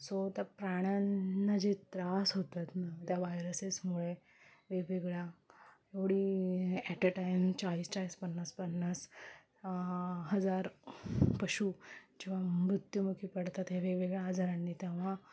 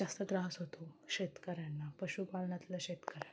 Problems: background sounds at intervals